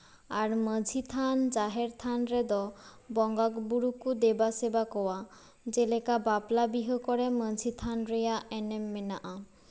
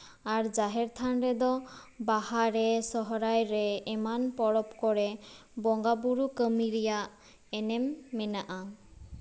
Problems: none marked